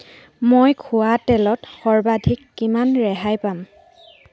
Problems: background sounds at intervals